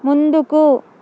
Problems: constant background noise